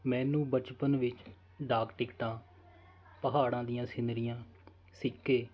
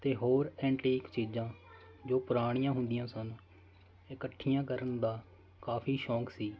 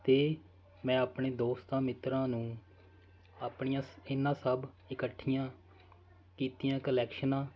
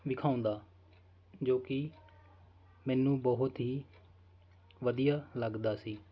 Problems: constant background noise